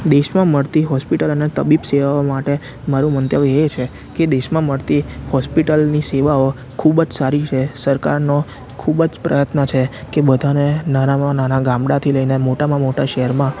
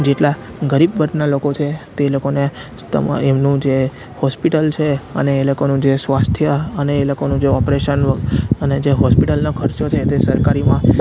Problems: constant background noise